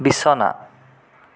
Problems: none marked